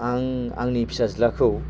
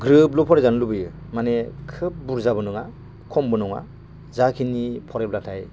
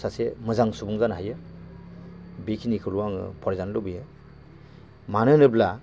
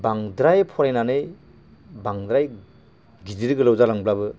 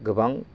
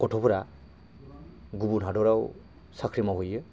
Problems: constant background noise